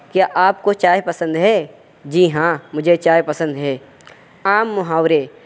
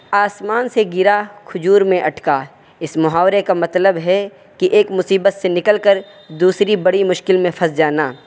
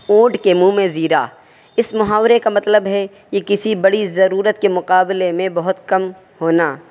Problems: none marked